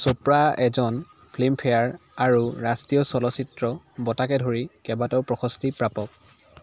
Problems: none marked